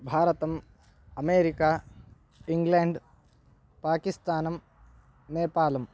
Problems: none marked